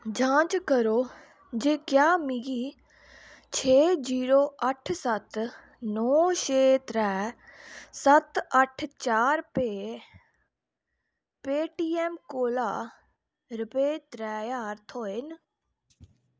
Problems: background sounds at intervals